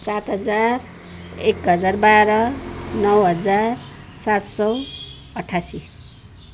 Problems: constant background noise